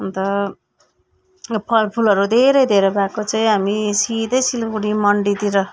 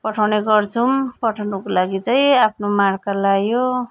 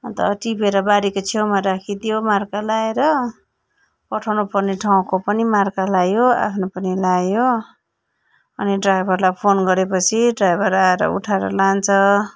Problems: none marked